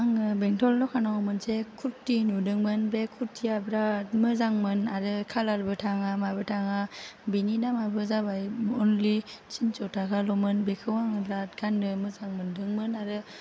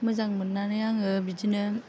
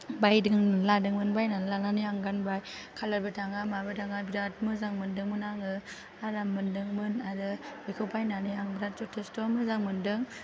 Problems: none marked